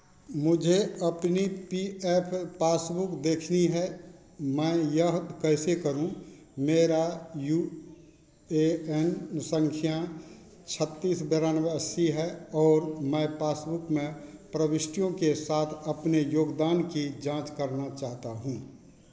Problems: constant background noise